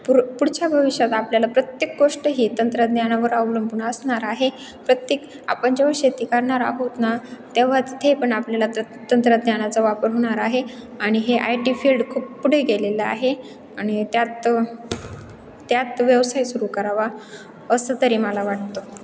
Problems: constant background noise